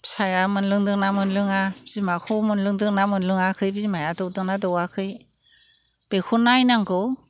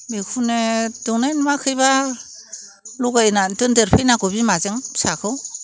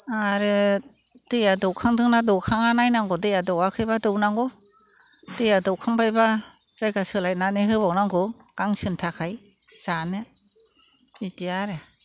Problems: constant background noise